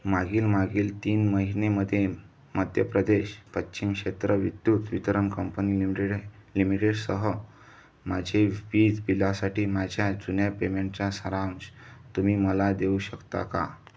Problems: none marked